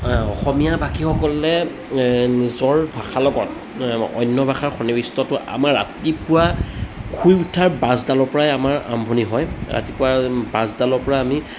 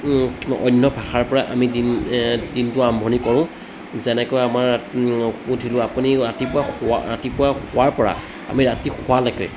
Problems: background sounds at intervals, background conversations at intervals